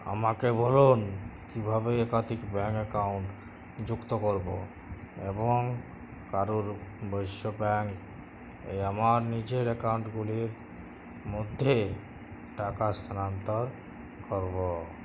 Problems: none marked